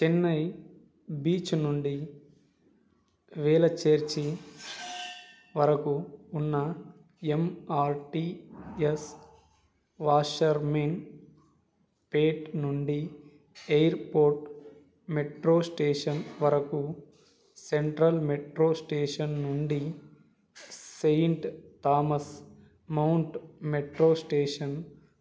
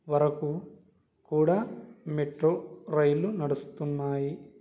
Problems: background sounds at intervals